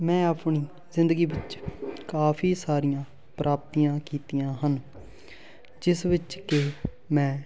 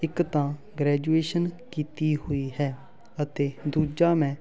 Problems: constant background noise